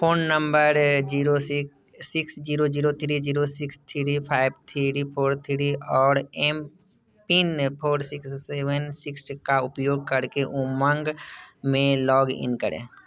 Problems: background sounds at intervals